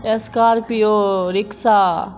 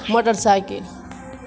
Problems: constant background noise